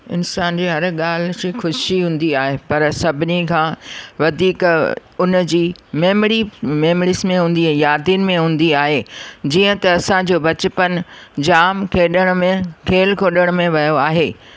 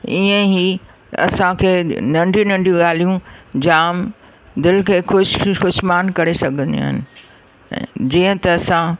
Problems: none marked